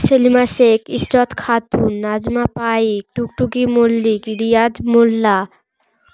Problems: background sounds at intervals